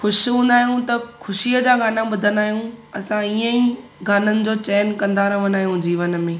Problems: constant background noise